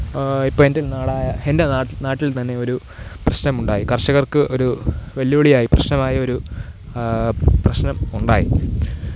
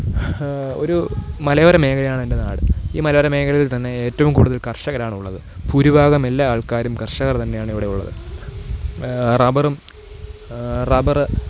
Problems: none marked